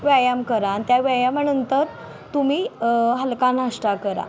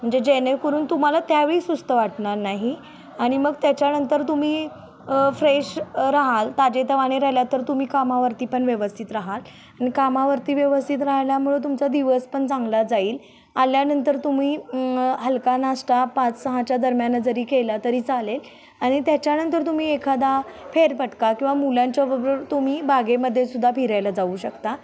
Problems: none marked